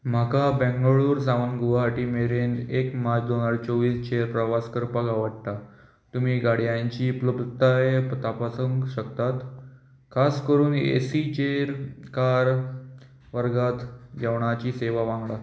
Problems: constant background noise